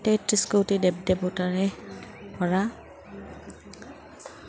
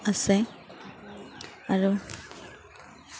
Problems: constant background noise, background conversations at intervals